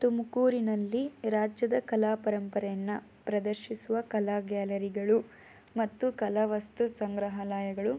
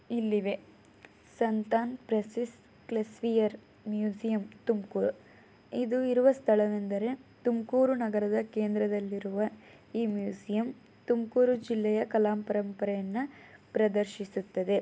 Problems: none marked